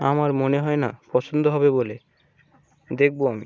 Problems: none marked